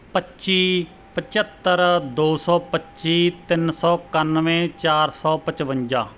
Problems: background sounds at intervals